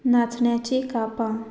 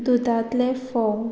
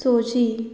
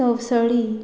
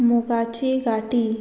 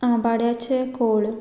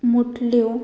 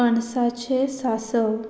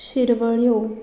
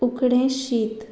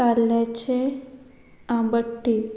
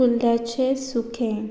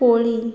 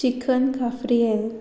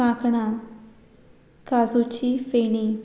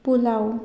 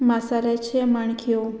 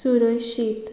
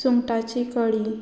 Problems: background sounds at intervals